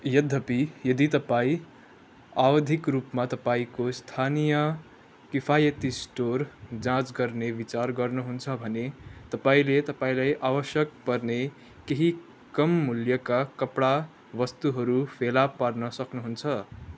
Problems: none marked